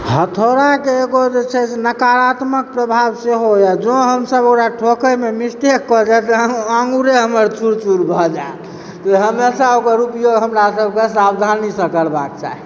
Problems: background sounds at intervals